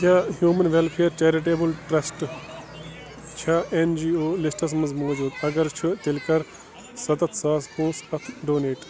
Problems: continuous background conversations